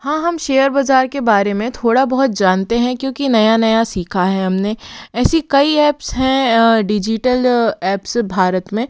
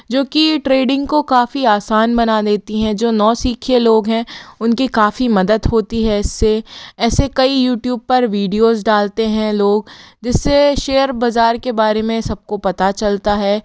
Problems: background sounds at intervals